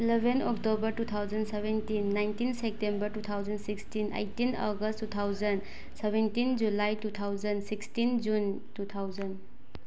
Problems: background sounds at intervals